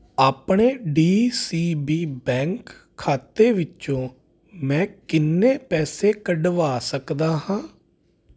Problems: constant background noise